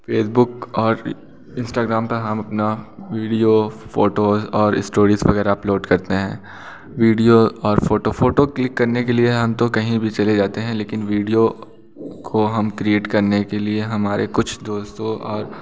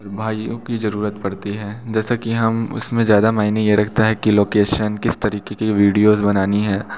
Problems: background sounds at intervals